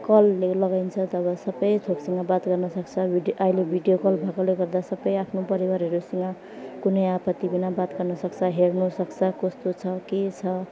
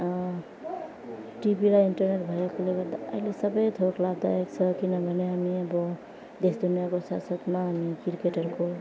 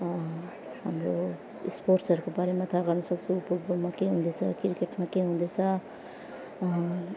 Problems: background sounds at intervals, background conversations at intervals, low volume